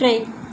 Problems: constant background noise